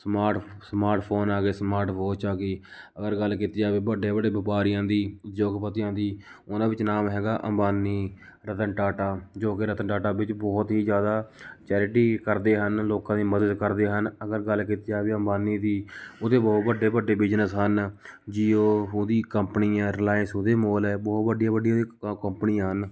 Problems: background sounds at intervals